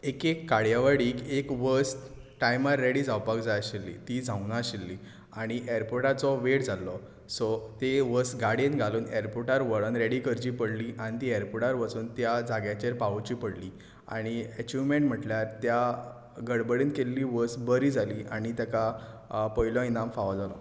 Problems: background sounds at intervals